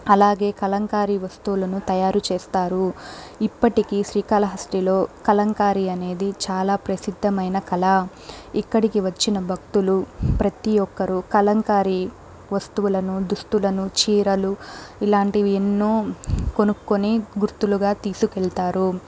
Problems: background sounds at intervals